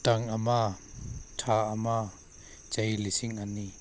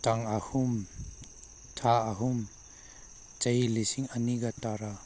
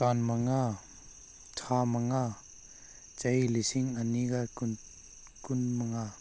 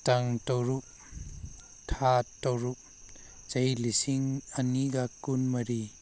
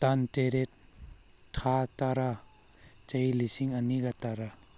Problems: none marked